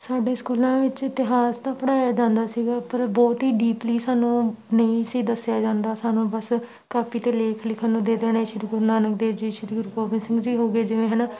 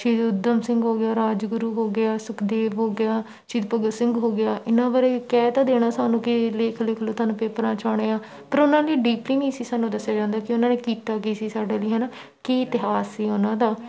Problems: none marked